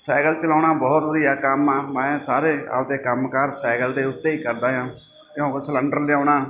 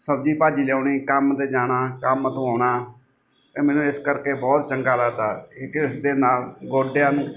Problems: none marked